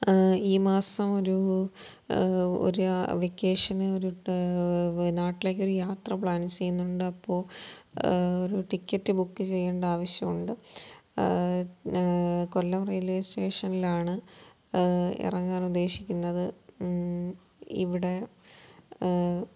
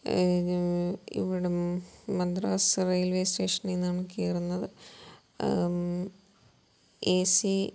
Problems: low volume